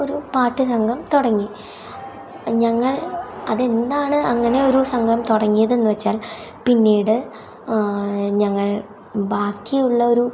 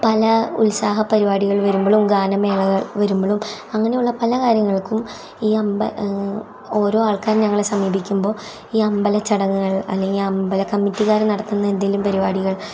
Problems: background sounds at intervals